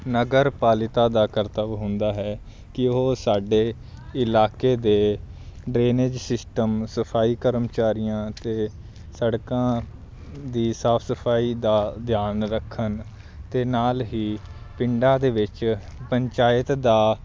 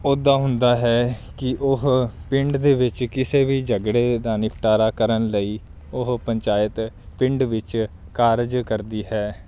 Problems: background sounds at intervals